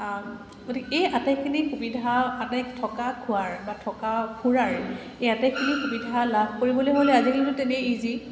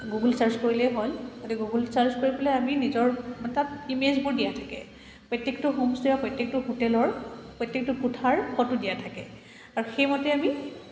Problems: constant background noise, echo